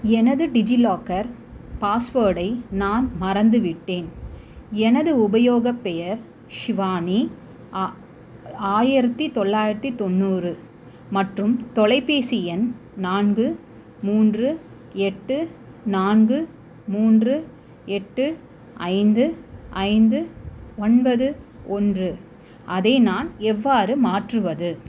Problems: constant background noise